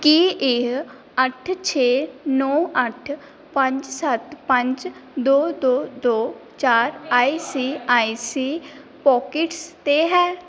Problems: none marked